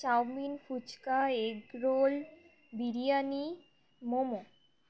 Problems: constant background noise